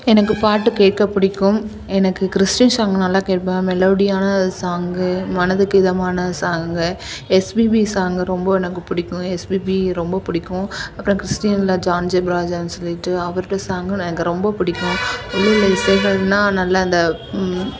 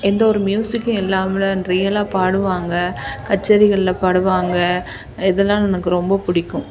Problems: none marked